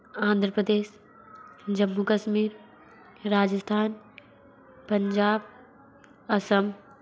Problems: constant background noise